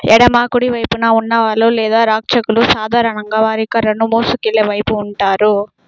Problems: background sounds at intervals